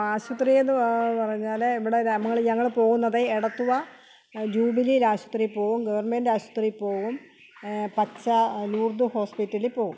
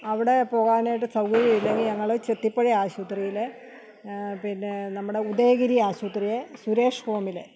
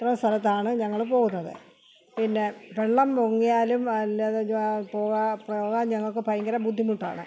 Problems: constant background noise